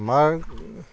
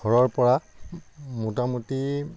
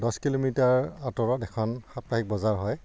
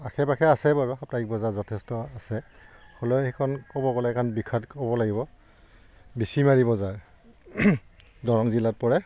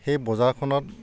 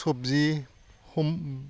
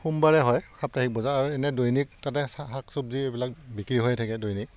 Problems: none marked